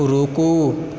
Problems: constant background noise